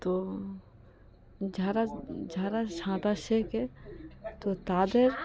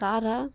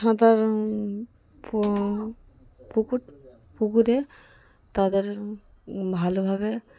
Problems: background sounds at intervals, background conversations at intervals